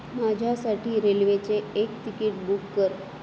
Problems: constant background noise